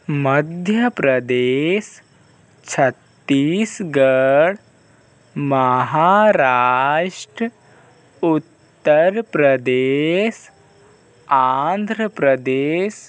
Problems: constant background noise